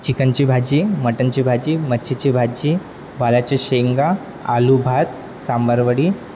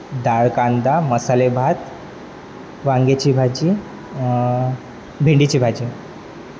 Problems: constant background noise, background conversations at intervals